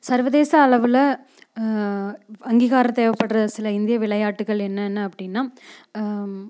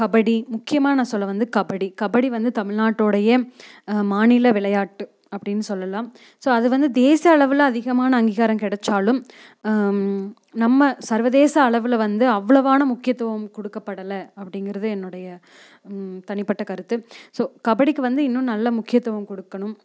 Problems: none marked